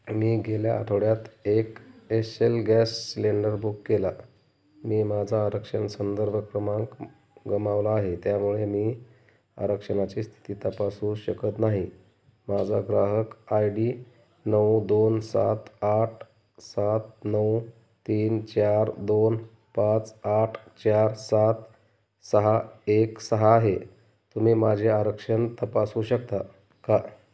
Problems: none marked